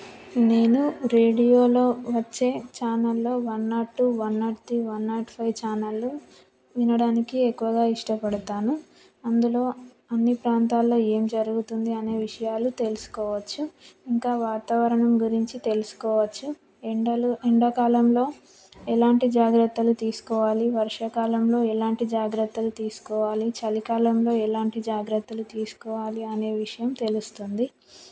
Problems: background sounds at intervals